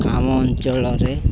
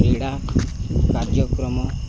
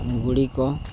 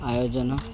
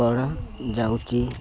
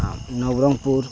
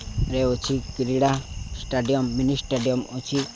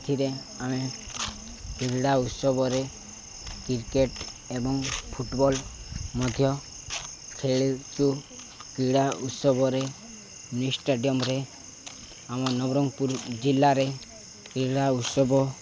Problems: none marked